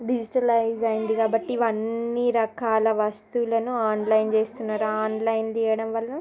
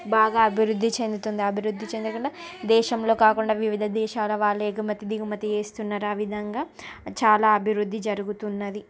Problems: continuous background conversations